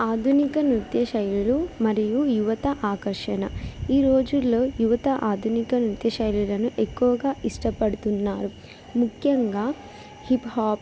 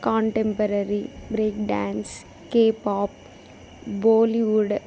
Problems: background sounds at intervals